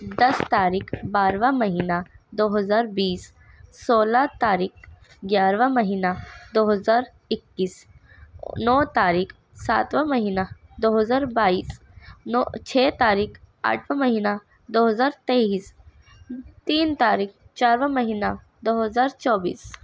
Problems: none marked